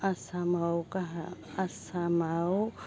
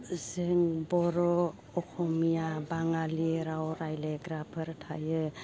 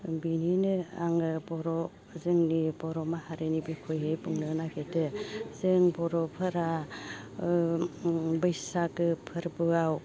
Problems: constant background noise